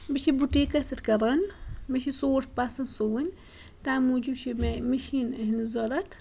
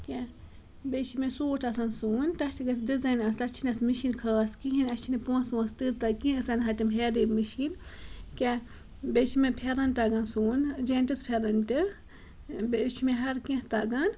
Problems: background sounds at intervals